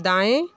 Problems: background sounds at intervals